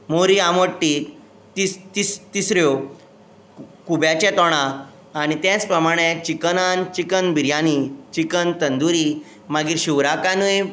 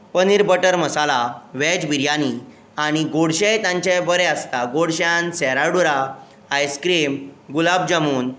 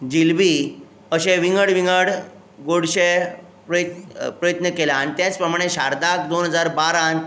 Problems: none marked